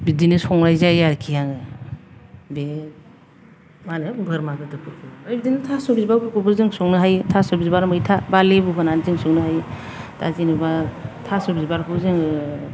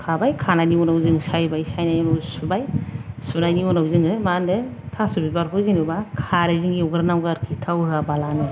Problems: none marked